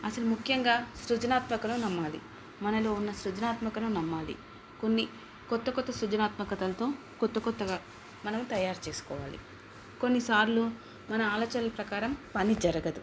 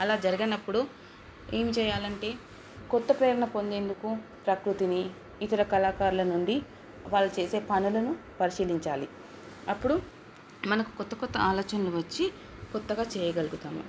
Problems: background sounds at intervals